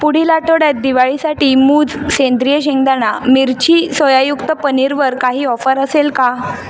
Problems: none marked